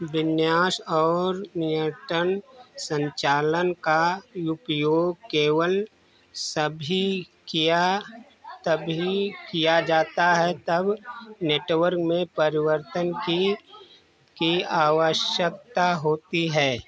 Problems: none marked